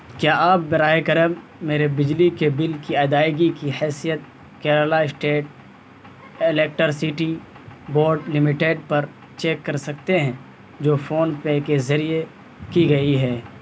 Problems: constant background noise